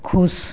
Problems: none marked